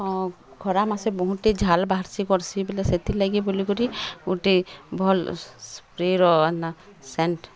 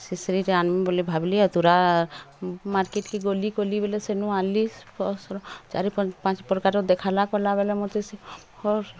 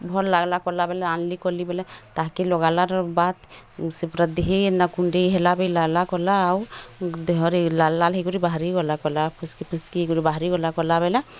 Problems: none marked